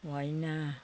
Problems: continuous background conversations